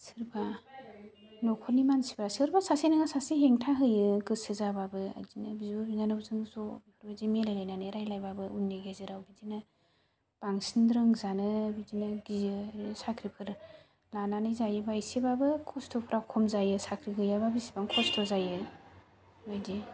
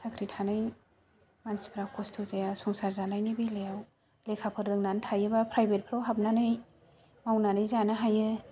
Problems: none marked